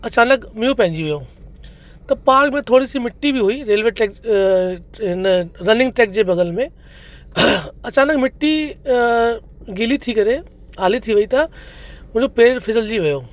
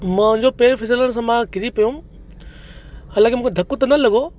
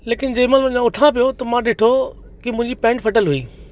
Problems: constant background noise, echo